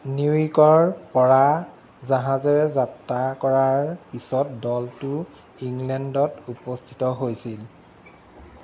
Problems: constant background noise